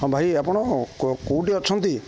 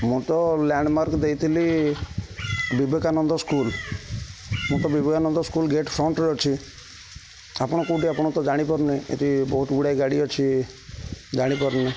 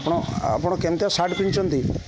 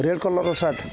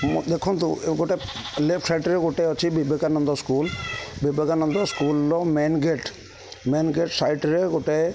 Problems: constant background noise